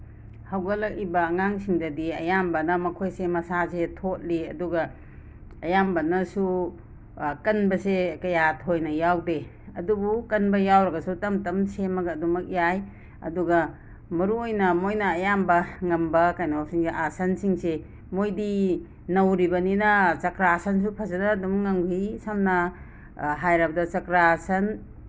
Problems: background sounds at intervals